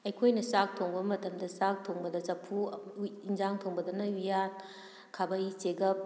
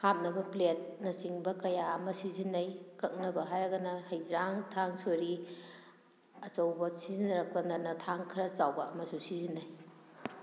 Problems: none marked